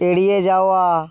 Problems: none marked